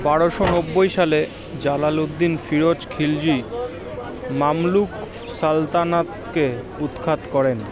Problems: constant background noise, continuous background conversations